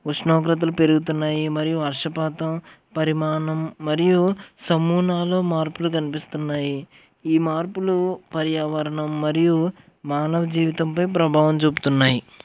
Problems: constant background noise